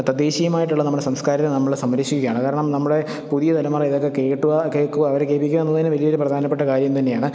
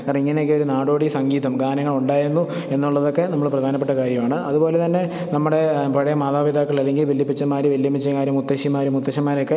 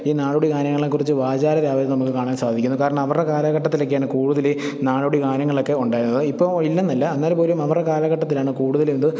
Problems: none marked